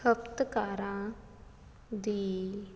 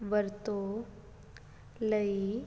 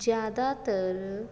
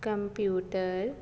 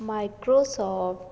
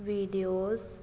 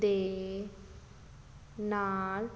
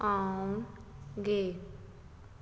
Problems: none marked